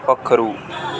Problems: constant background noise